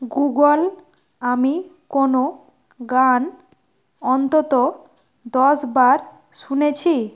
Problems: none marked